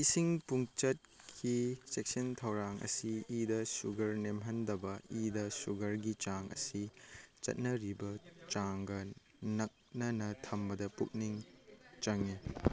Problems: background sounds at intervals, background conversations at intervals